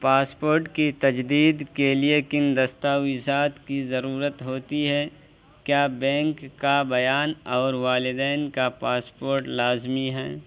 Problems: constant background noise